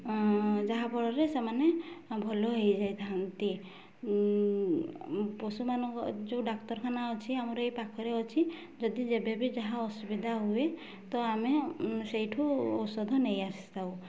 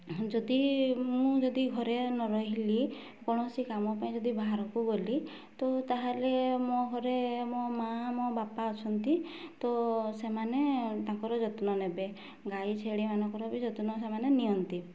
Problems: low volume